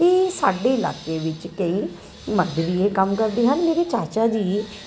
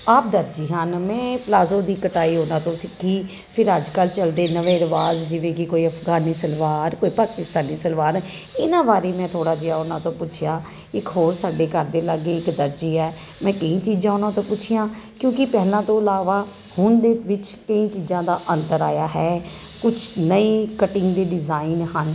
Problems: none marked